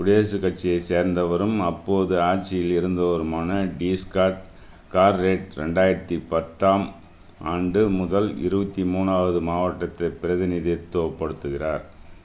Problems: none marked